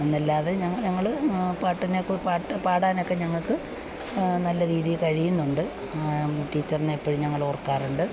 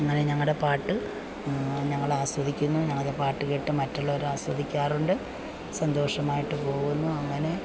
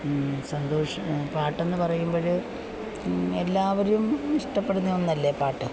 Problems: constant background noise, low volume